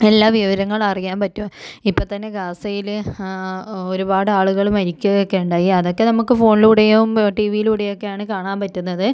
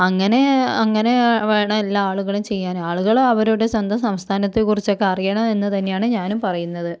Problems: none marked